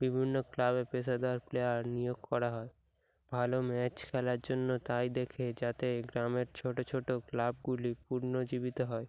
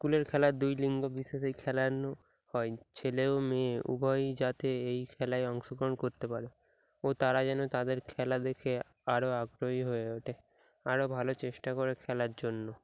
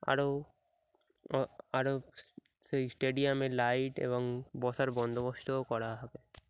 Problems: none marked